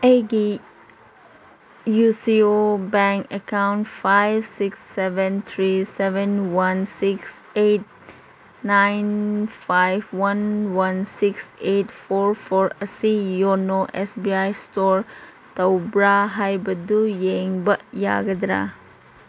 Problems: none marked